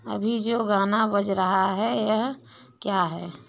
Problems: background sounds at intervals